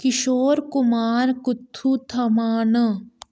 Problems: none marked